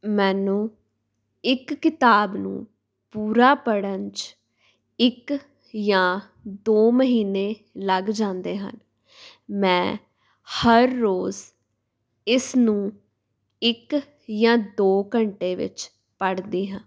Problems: background sounds at intervals